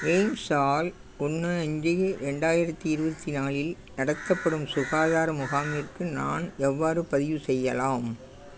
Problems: constant background noise